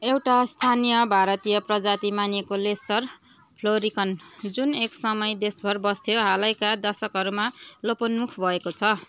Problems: constant background noise, continuous background conversations